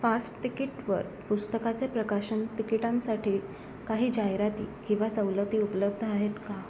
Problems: constant background noise, background conversations at intervals